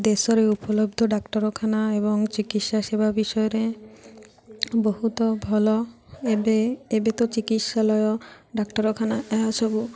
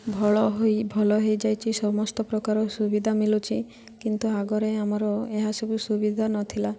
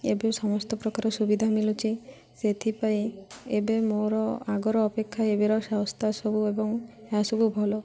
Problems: none marked